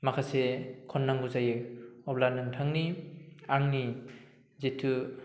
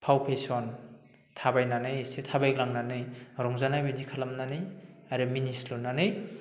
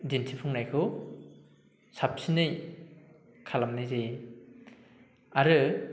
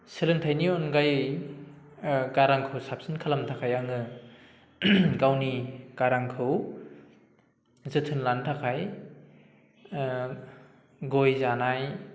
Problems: low volume